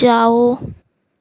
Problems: none marked